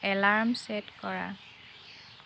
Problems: none marked